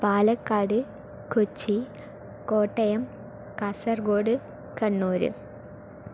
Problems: none marked